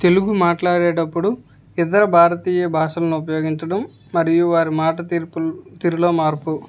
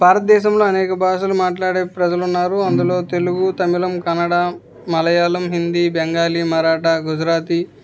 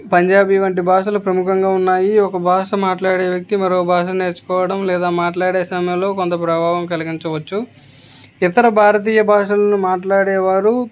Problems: background conversations at intervals